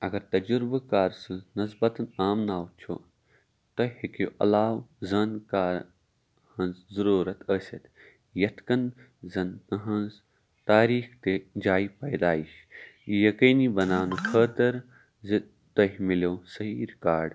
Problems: background sounds at intervals